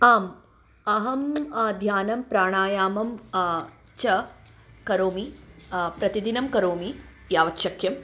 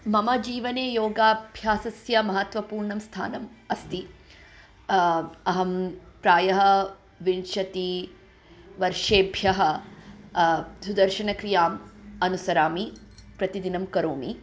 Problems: background sounds at intervals